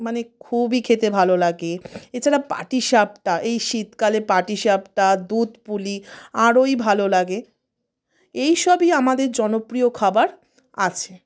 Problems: none marked